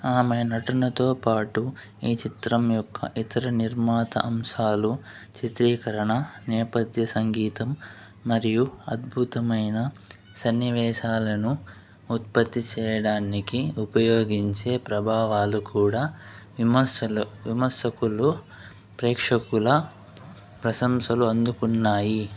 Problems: constant background noise